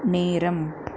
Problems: none marked